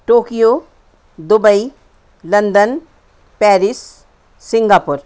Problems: constant background noise